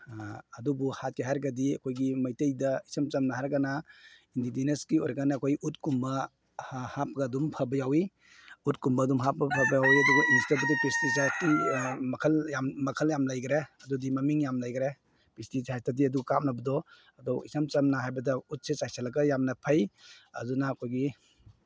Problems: none marked